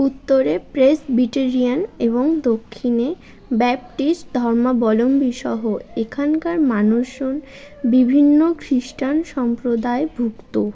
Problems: continuous background conversations